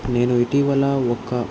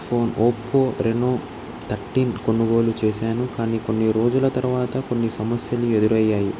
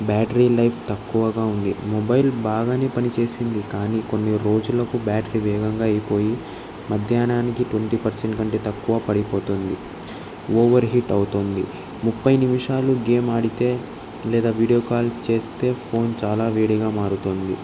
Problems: constant background noise